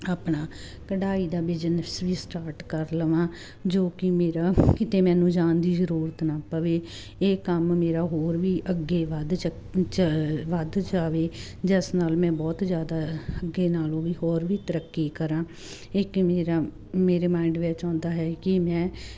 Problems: constant background noise